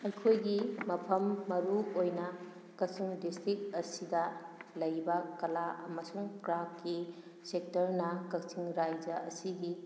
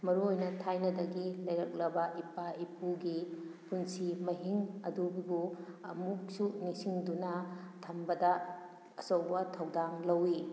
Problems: background sounds at intervals